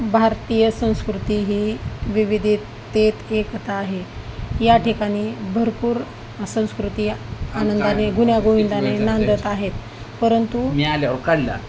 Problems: constant background noise, continuous background conversations